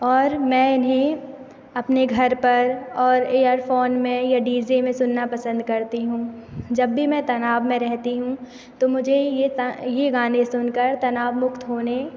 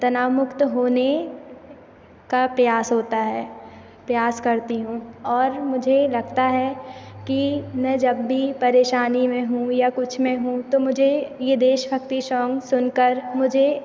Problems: constant background noise